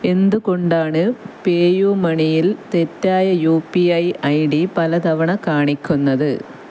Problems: none marked